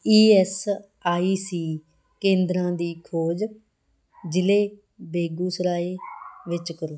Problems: background sounds at intervals